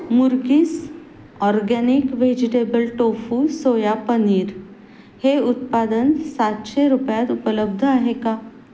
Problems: constant background noise